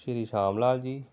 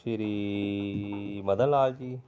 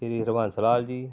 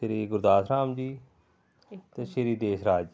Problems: background sounds at intervals, background conversations at intervals